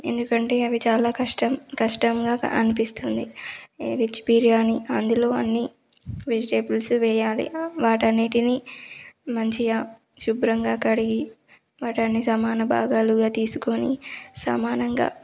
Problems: none marked